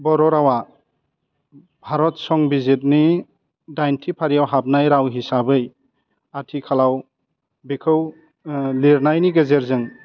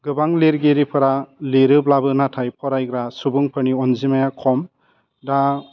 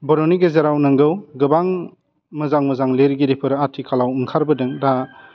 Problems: low volume